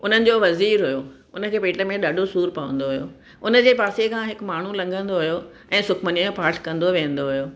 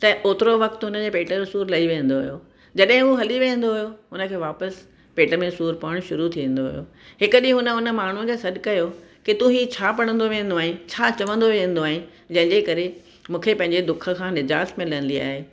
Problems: none marked